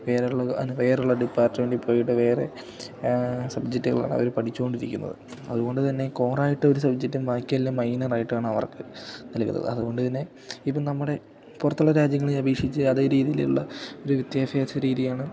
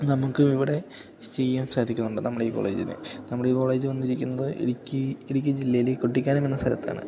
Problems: none marked